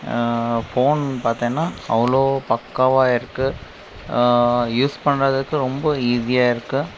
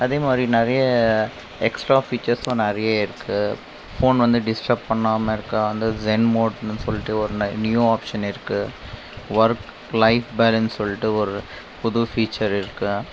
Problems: constant background noise